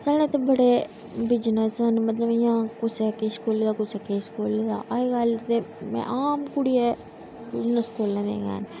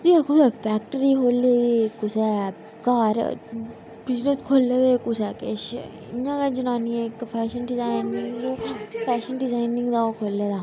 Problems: constant background noise, echo